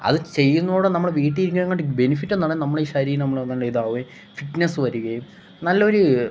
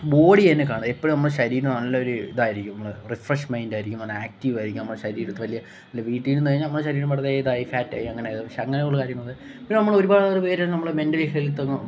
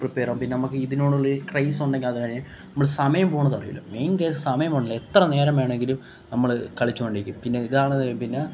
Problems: none marked